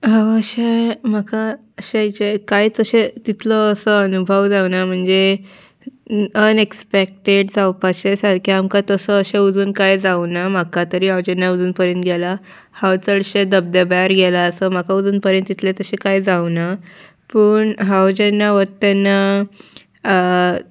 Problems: none marked